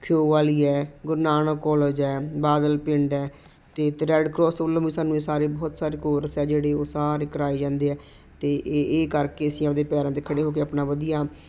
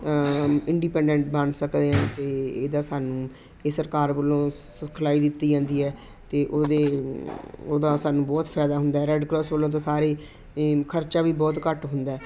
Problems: constant background noise